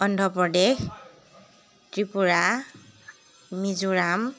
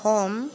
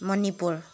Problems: none marked